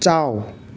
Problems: constant background noise